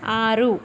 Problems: background sounds at intervals